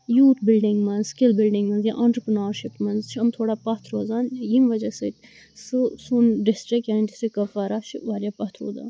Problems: constant background noise